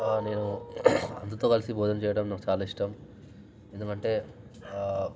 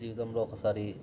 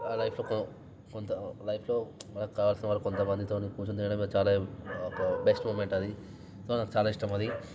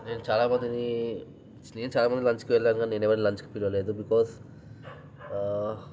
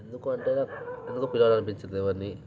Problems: background sounds at intervals